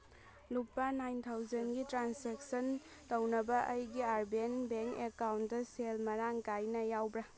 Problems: background conversations at intervals